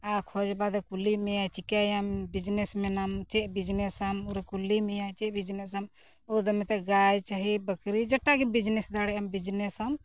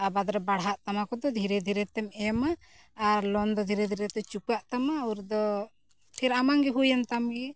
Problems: none marked